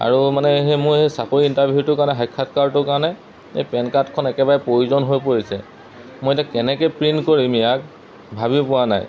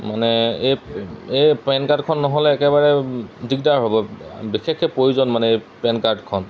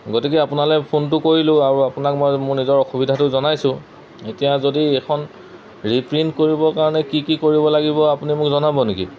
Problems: none marked